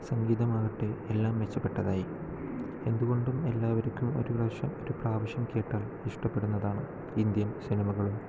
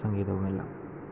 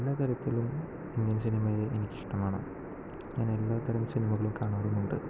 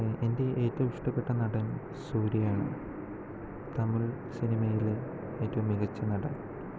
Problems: low volume